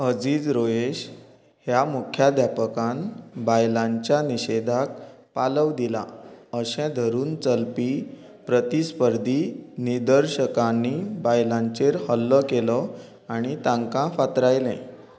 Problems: none marked